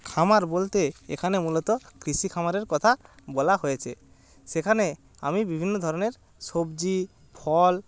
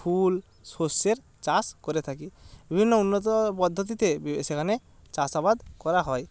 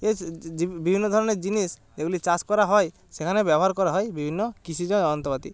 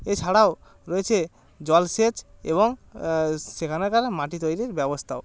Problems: background sounds at intervals